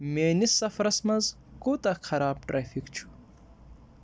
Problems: none marked